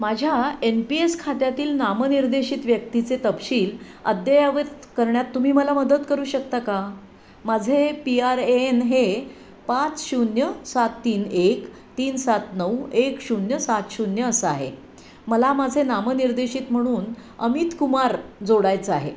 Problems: none marked